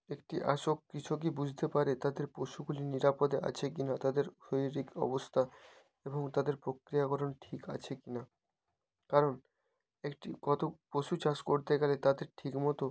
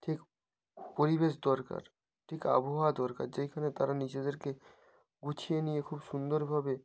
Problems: constant background noise